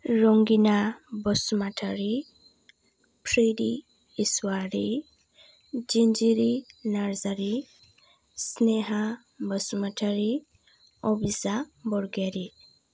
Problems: none marked